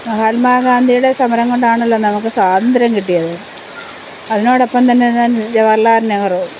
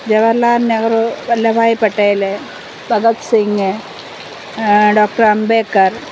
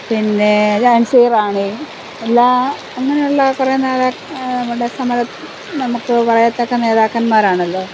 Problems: none marked